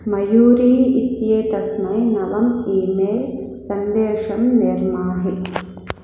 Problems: constant background noise